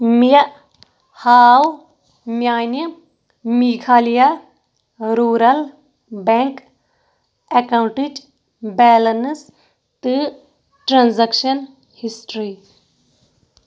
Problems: none marked